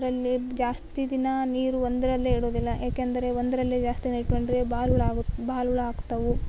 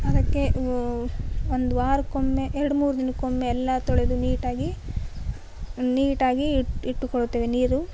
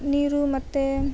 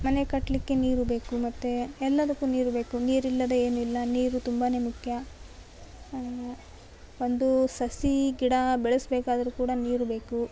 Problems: none marked